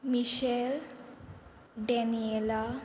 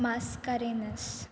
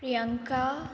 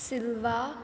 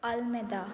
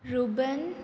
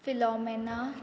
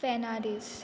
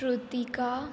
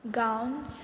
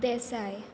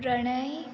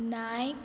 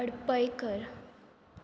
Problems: background sounds at intervals